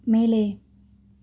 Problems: none marked